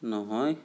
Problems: none marked